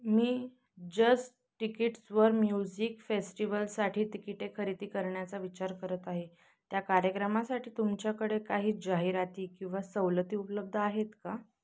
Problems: constant background noise